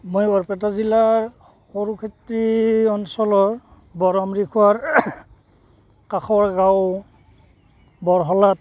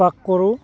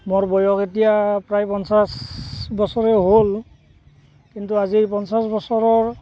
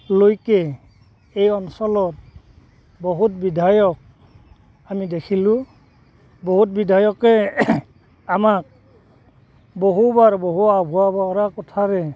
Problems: constant background noise